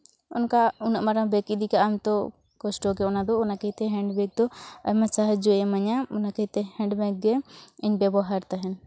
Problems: none marked